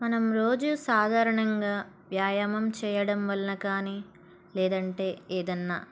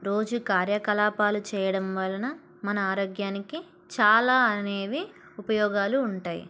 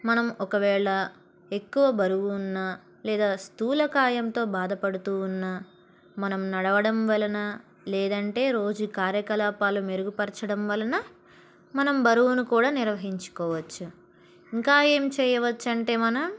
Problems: background sounds at intervals